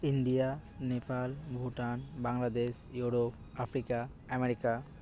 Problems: background sounds at intervals, background conversations at intervals